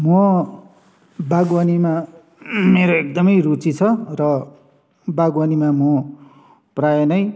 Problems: none marked